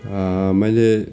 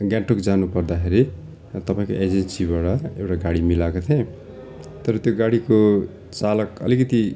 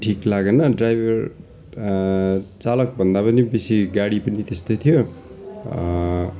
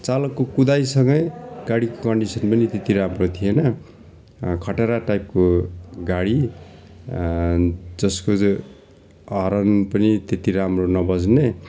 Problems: none marked